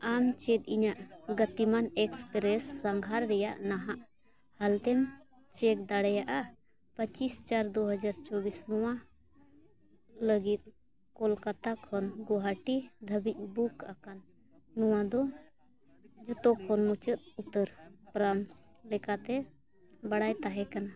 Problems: none marked